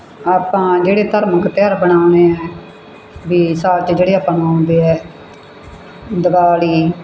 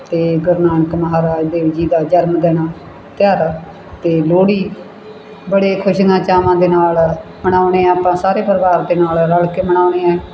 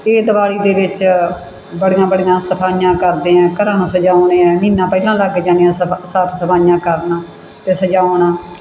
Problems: background sounds at intervals